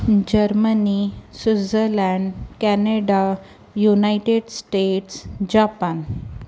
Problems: constant background noise